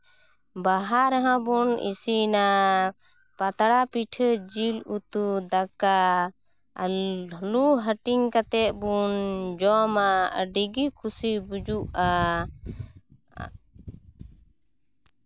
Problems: background sounds at intervals